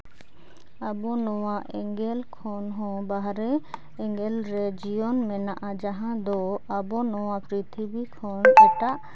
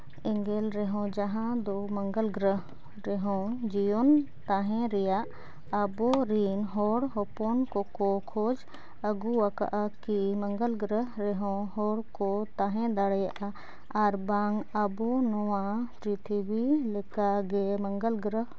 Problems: none marked